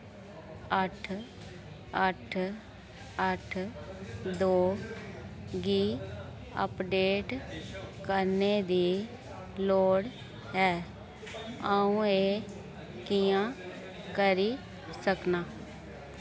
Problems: constant background noise